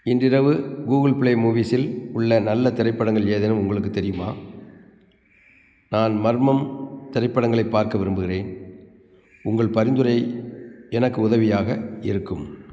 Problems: background sounds at intervals